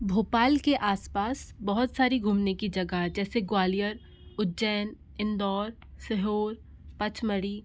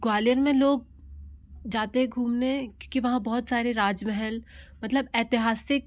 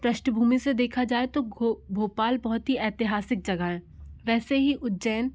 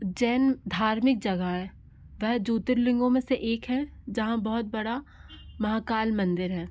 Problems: background sounds at intervals